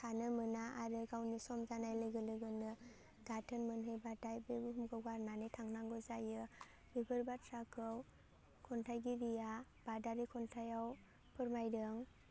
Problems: low volume